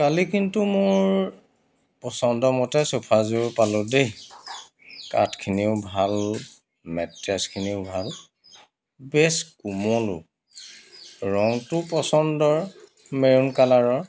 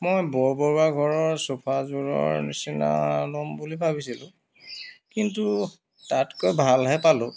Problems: constant background noise